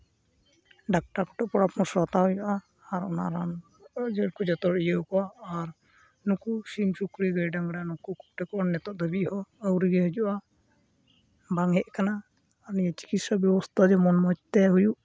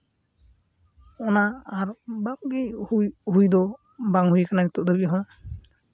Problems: background sounds at intervals